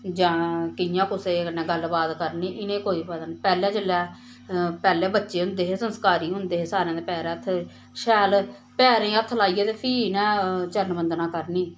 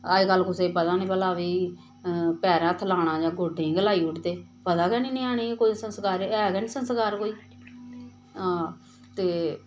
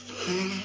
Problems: none marked